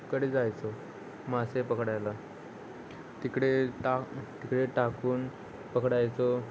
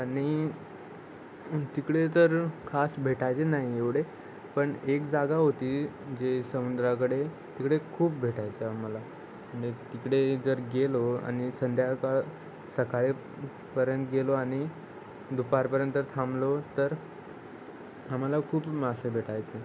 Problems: constant background noise, background conversations at intervals